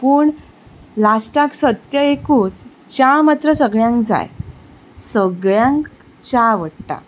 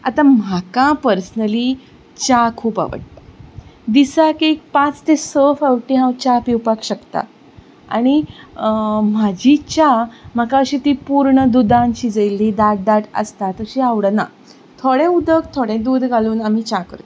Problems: none marked